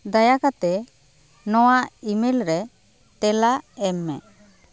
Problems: constant background noise, background conversations at intervals